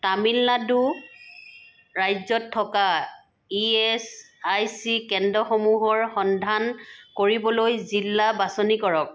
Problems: background sounds at intervals